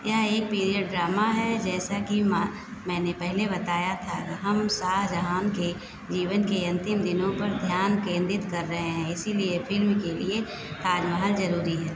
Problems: constant background noise